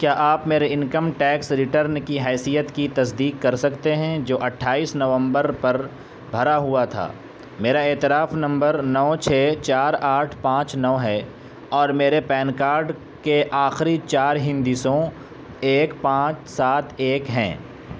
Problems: constant background noise